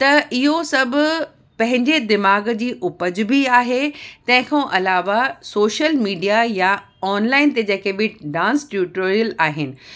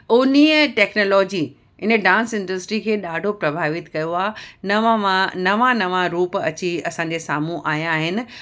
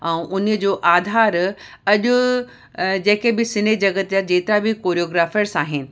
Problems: none marked